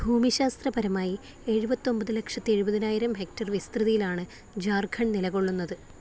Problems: low volume